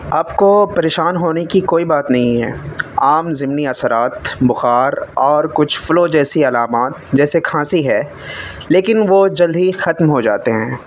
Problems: constant background noise